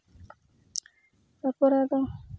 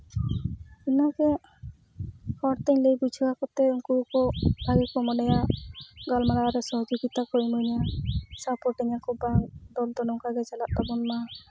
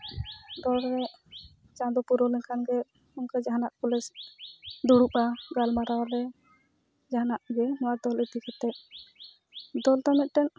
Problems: background sounds at intervals